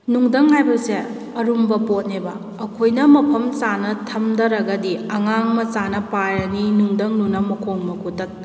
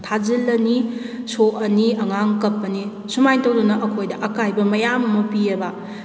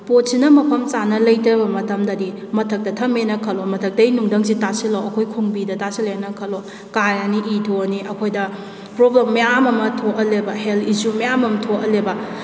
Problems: none marked